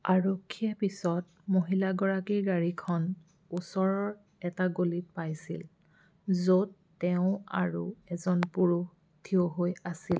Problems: constant background noise